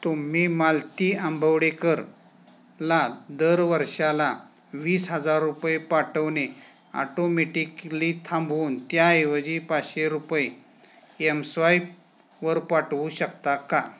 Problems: none marked